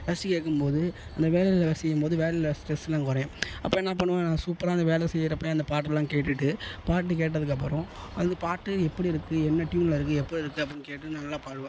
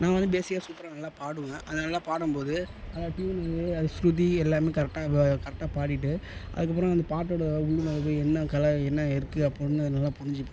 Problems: low volume